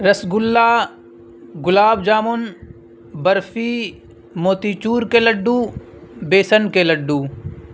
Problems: constant background noise